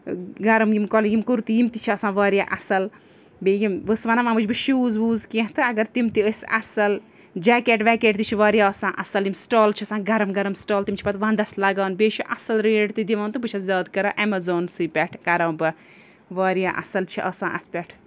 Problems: none marked